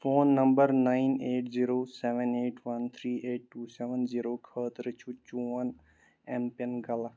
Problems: none marked